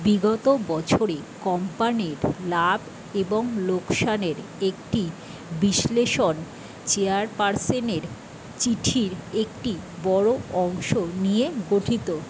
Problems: constant background noise